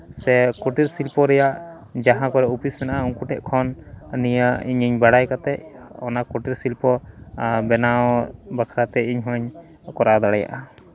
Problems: background conversations at intervals